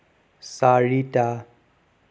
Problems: none marked